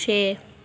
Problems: none marked